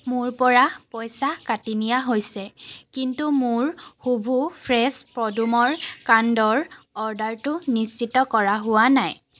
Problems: constant background noise